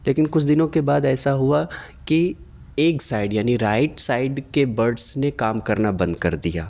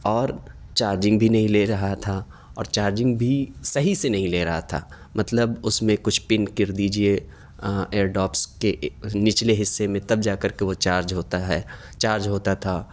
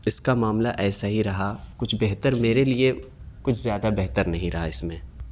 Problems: none marked